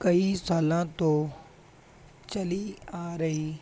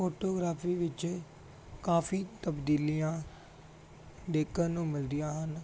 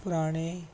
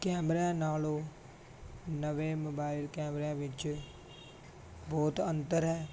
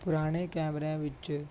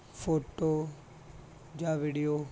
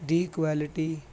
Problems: none marked